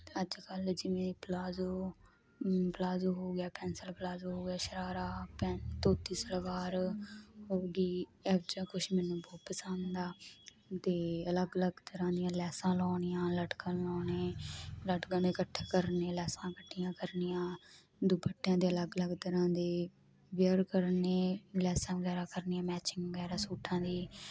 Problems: none marked